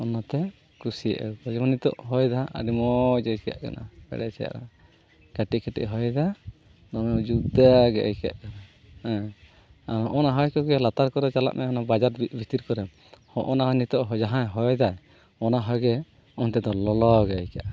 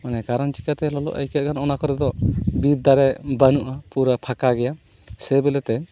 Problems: background sounds at intervals